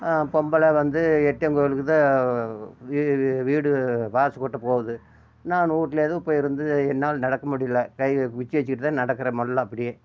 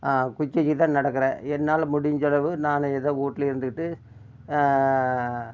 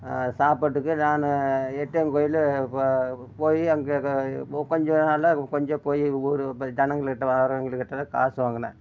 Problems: constant background noise